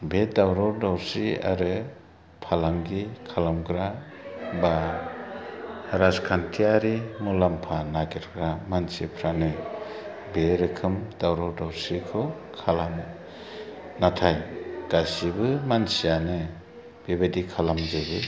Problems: background sounds at intervals, low volume